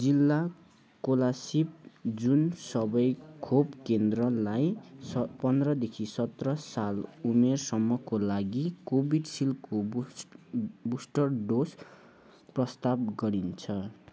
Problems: none marked